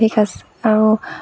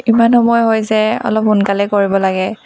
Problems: constant background noise